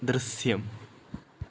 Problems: none marked